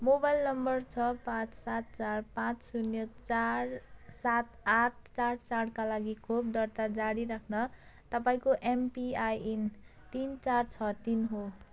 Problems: none marked